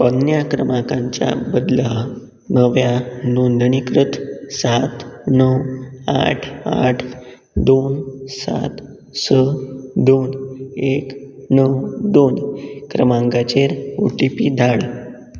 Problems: constant background noise